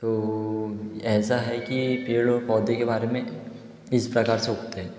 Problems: none marked